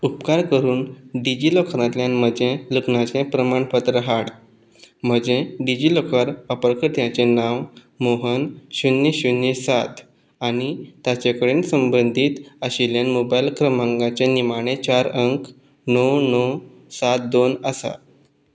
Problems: background sounds at intervals